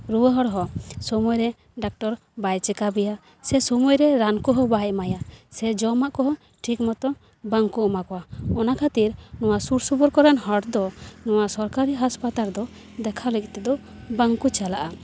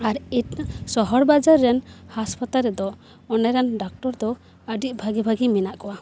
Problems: background sounds at intervals, background conversations at intervals